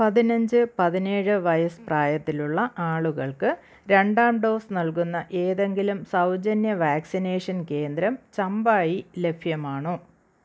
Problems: none marked